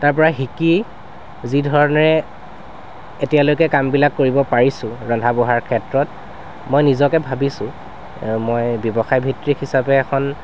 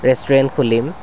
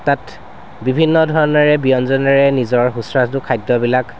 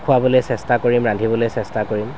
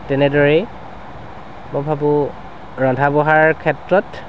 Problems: constant background noise